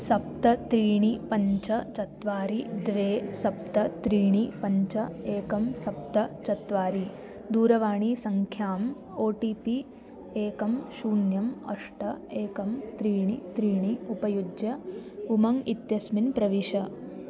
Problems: constant background noise